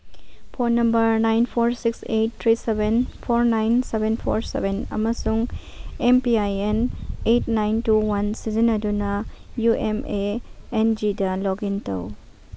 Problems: background sounds at intervals